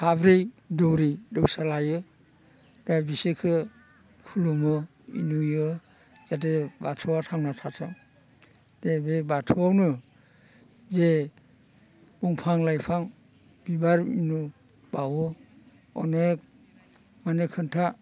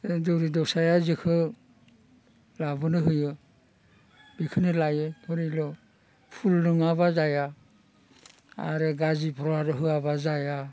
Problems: constant background noise